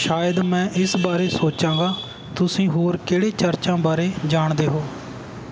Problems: none marked